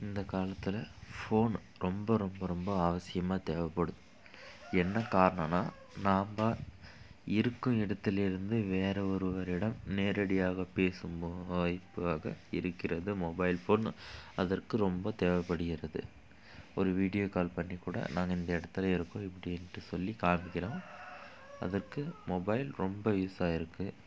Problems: background sounds at intervals